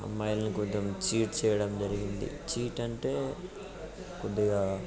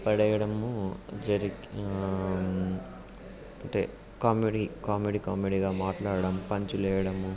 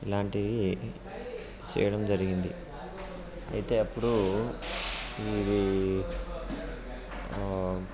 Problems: constant background noise, background conversations at intervals